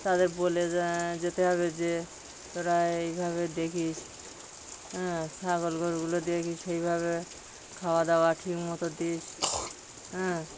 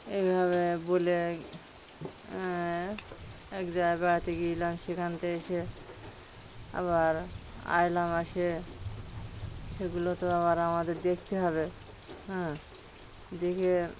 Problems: background sounds at intervals